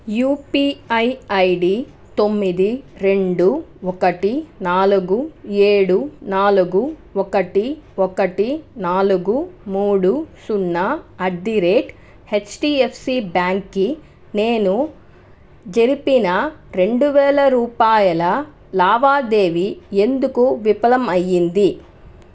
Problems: none marked